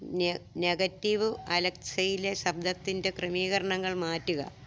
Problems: none marked